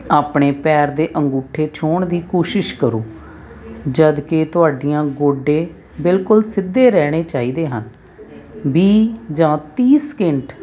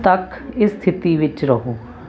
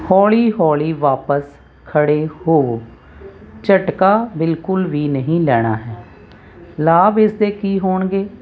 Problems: none marked